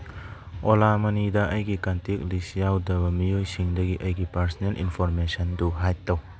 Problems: background sounds at intervals, background conversations at intervals